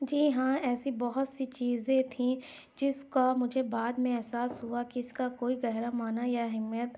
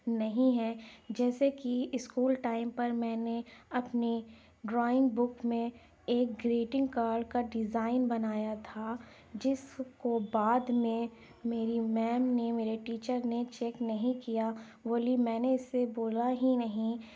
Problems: none marked